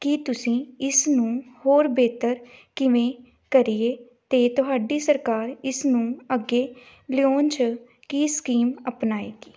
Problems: none marked